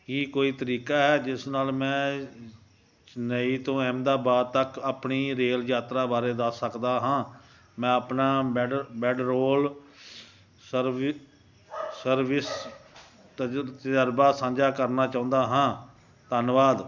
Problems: background sounds at intervals